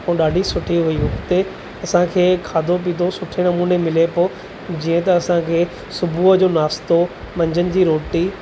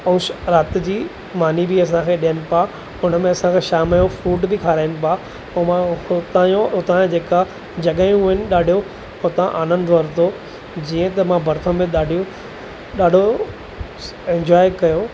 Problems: constant background noise